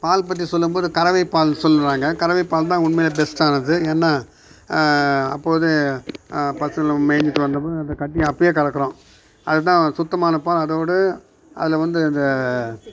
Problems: background sounds at intervals